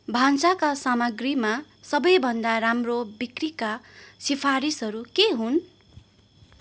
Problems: constant background noise